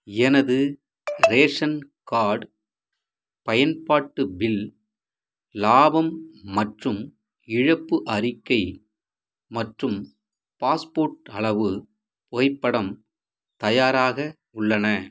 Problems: background sounds at intervals